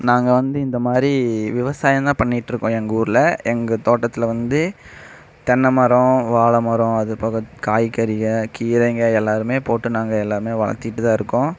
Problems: none marked